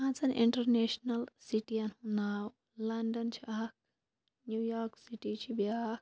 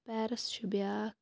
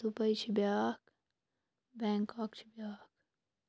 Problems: background sounds at intervals